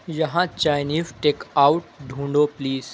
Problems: constant background noise